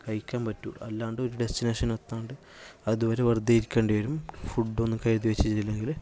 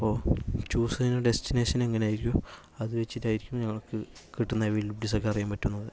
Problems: low volume